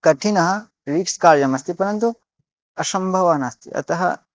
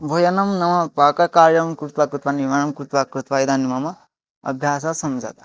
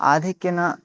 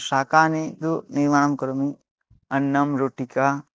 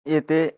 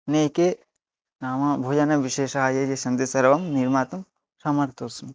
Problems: none marked